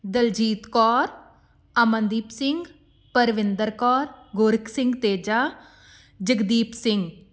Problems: constant background noise